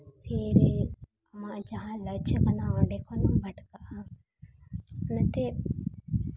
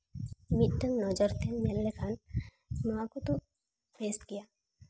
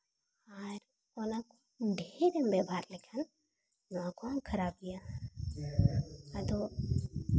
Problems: none marked